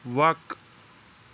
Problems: background sounds at intervals